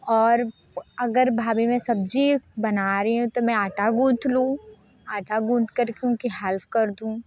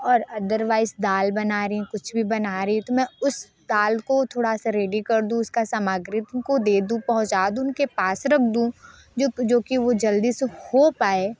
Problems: constant background noise